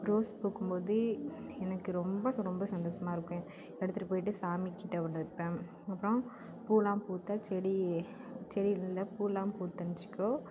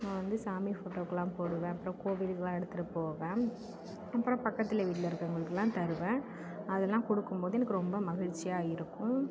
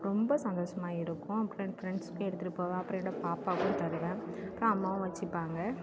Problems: constant background noise, background conversations at intervals